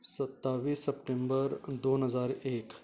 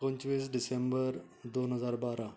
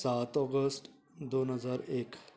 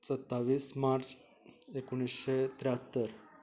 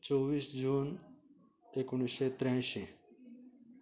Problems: none marked